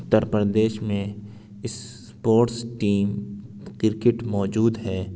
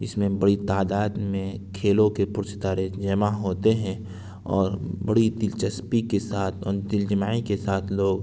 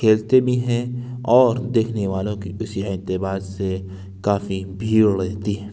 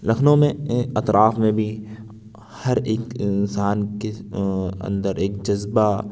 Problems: constant background noise